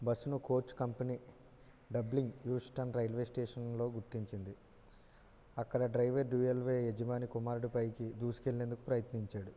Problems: low volume